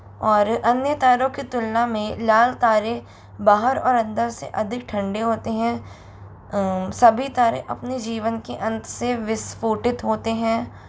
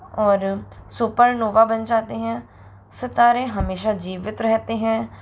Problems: constant background noise